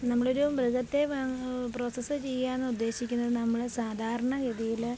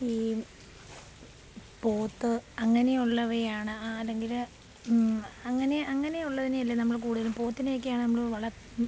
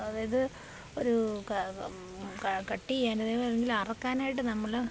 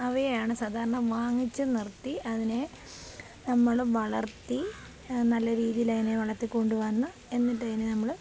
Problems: constant background noise